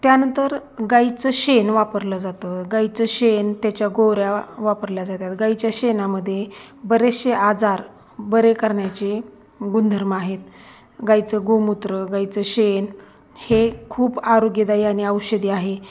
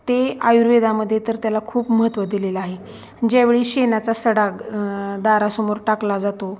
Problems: constant background noise